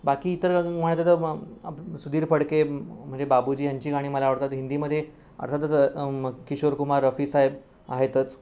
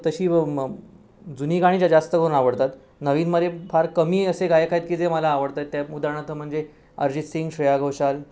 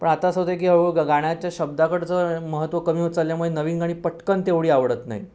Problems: background sounds at intervals